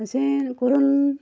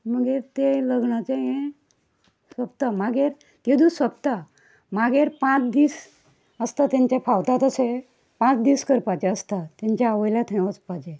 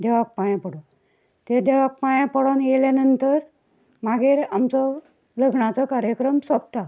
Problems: none marked